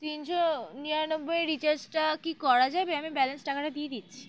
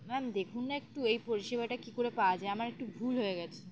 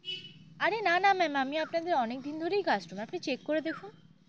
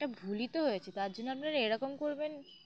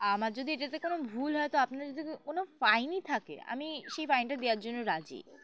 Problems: background sounds at intervals